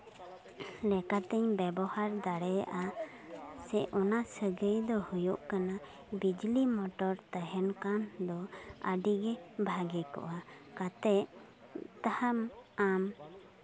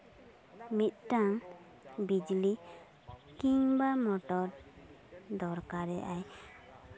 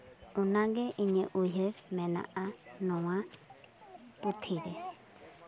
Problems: background sounds at intervals, background conversations at intervals